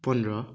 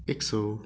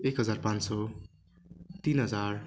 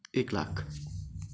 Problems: none marked